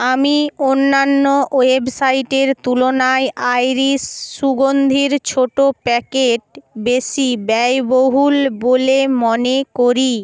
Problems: none marked